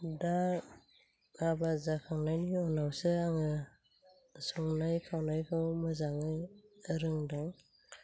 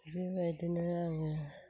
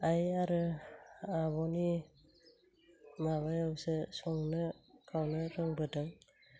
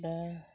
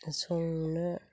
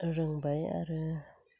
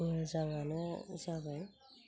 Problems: low volume